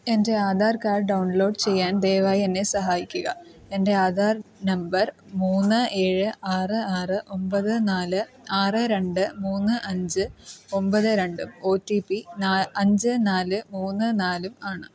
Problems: background sounds at intervals